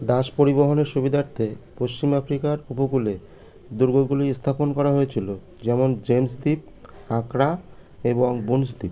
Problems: constant background noise